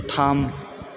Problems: none marked